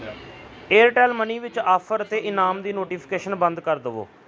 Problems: background conversations at intervals